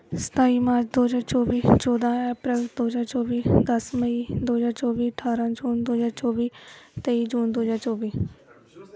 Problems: background conversations at intervals